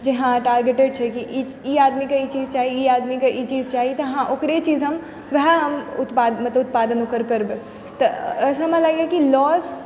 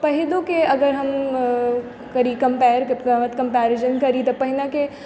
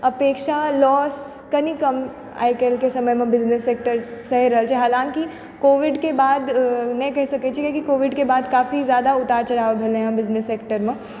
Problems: background sounds at intervals